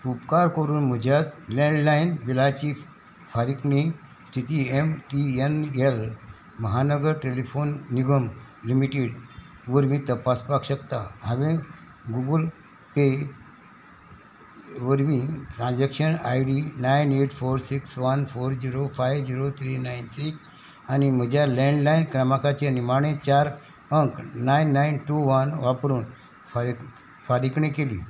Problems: none marked